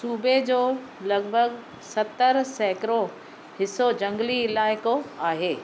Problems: none marked